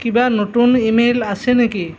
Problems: constant background noise